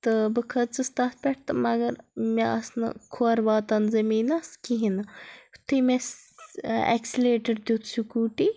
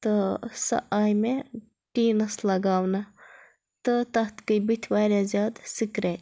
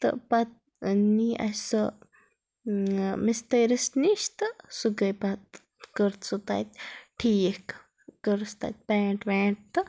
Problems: none marked